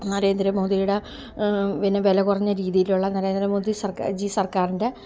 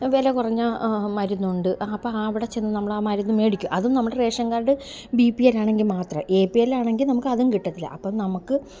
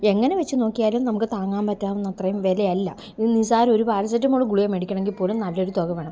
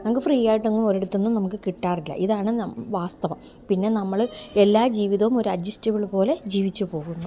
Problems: background sounds at intervals